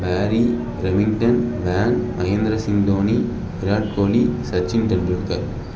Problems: background conversations at intervals